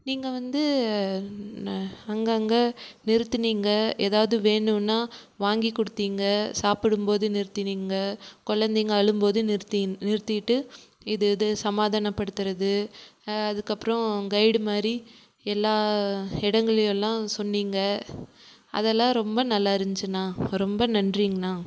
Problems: none marked